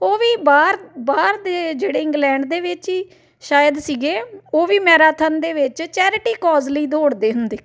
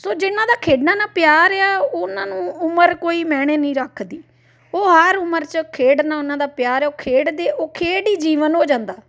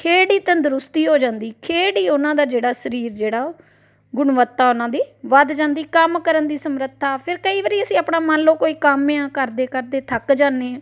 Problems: none marked